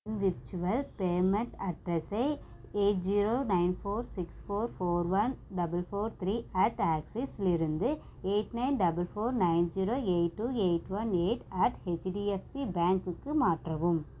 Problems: none marked